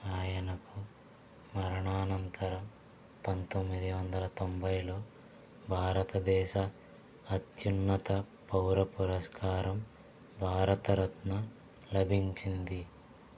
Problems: low volume